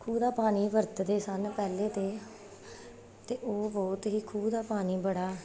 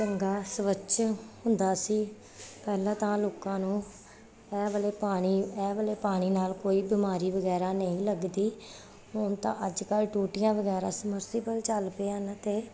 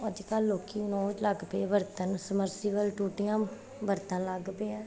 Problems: none marked